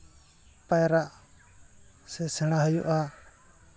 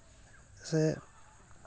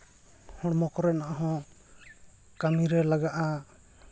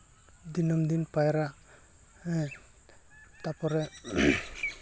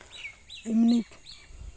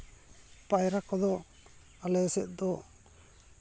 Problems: background sounds at intervals